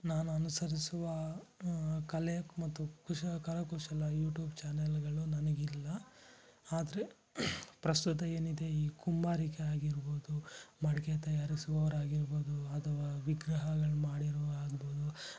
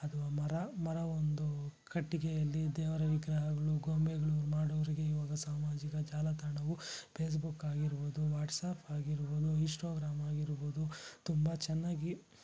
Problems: low volume